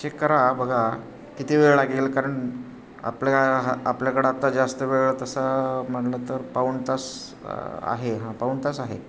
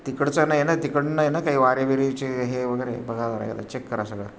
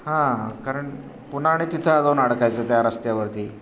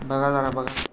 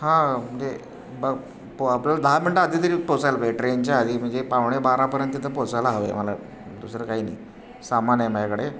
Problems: constant background noise